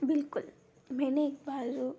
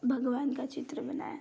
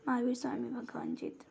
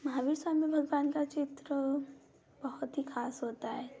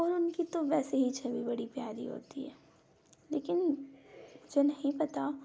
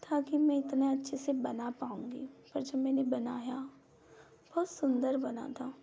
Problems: none marked